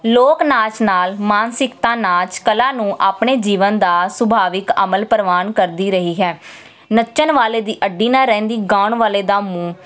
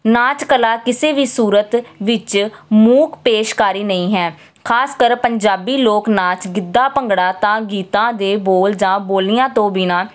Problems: none marked